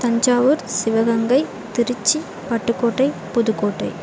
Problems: constant background noise, continuous background conversations